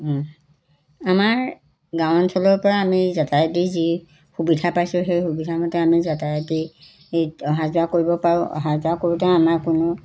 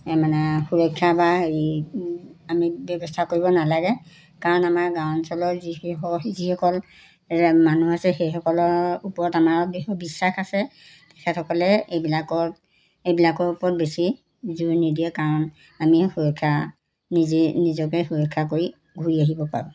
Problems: background sounds at intervals